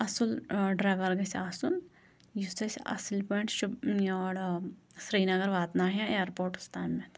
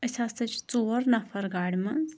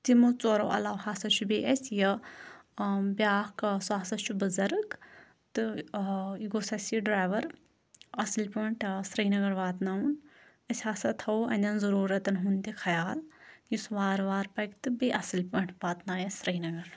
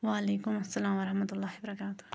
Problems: none marked